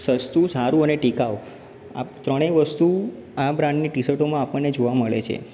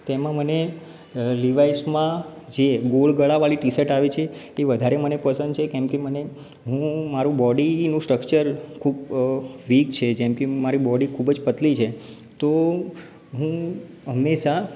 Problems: background sounds at intervals